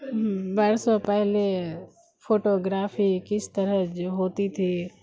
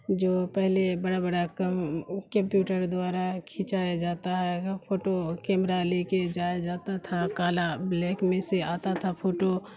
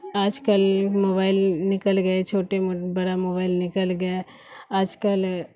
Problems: constant background noise